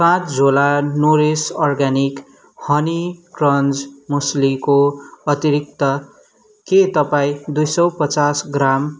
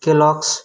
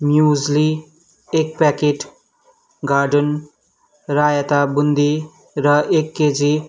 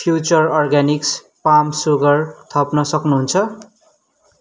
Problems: background sounds at intervals